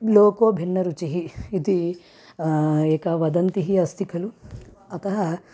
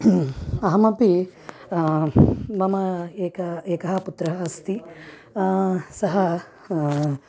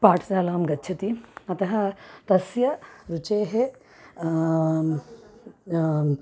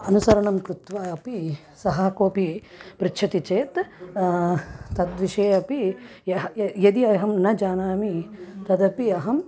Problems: none marked